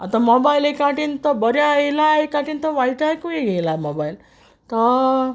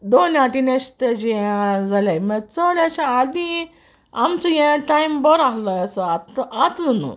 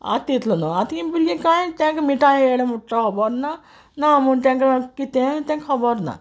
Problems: constant background noise